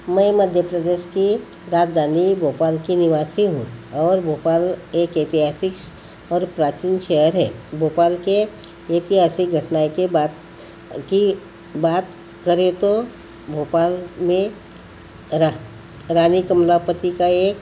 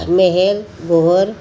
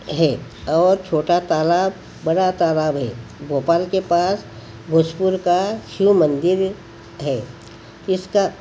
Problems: constant background noise